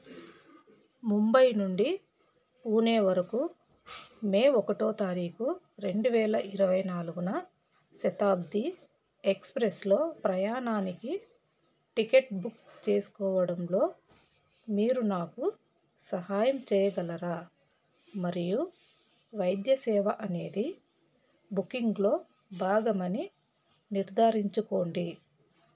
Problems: none marked